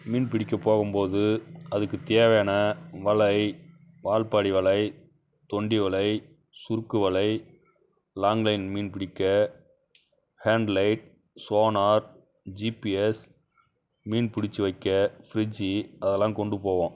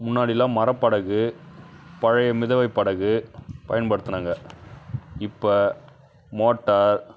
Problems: background sounds at intervals